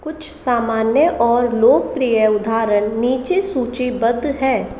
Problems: constant background noise